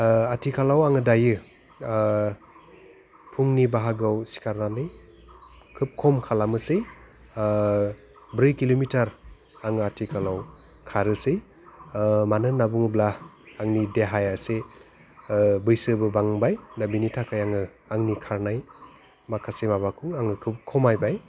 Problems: low volume